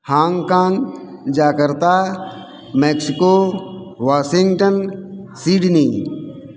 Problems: none marked